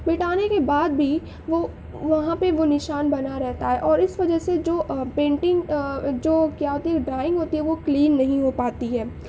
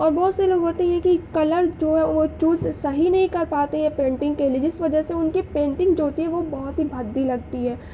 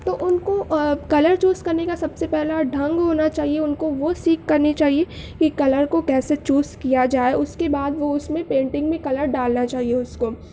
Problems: none marked